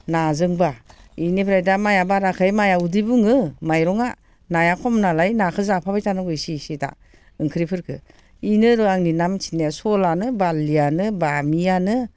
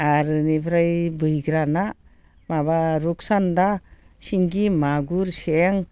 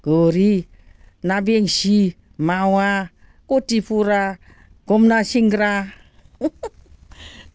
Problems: constant background noise